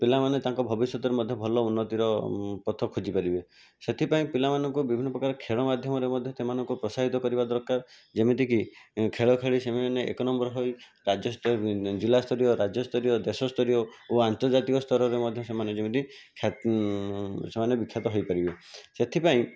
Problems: constant background noise